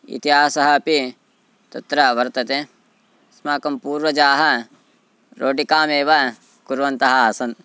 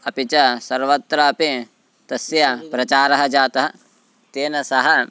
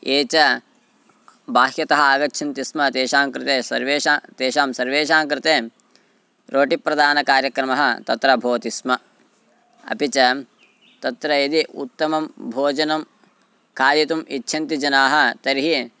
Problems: background sounds at intervals, background conversations at intervals